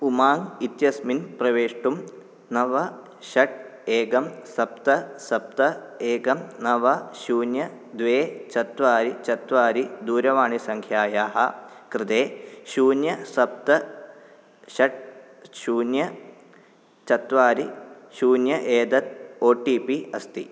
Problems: none marked